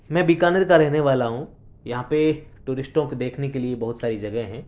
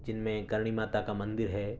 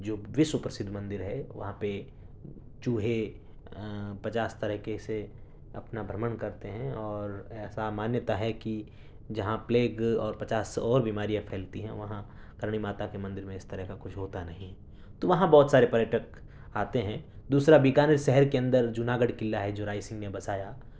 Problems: none marked